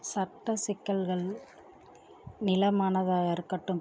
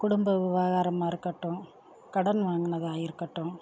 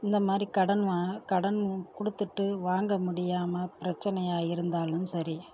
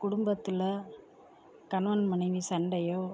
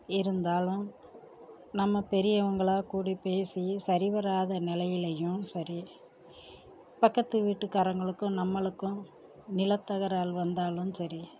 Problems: low volume